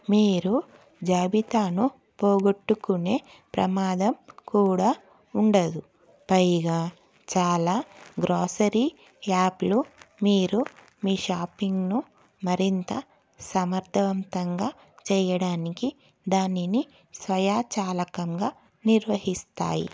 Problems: none marked